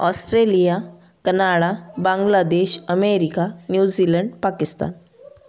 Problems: background conversations at intervals